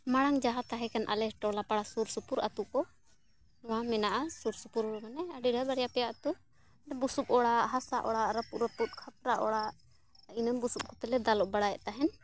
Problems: none marked